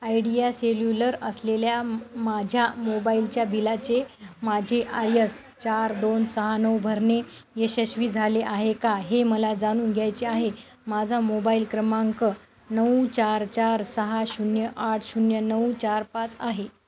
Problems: constant background noise, continuous background conversations